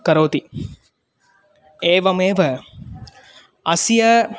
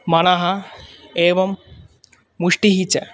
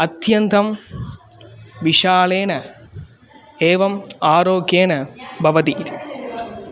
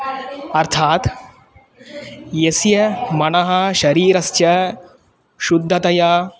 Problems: none marked